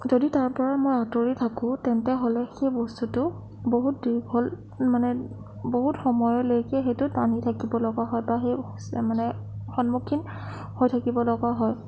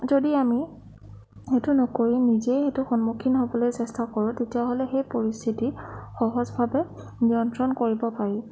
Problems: none marked